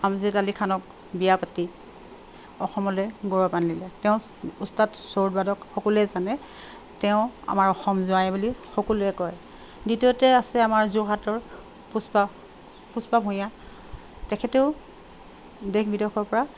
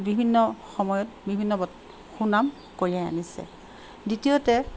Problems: constant background noise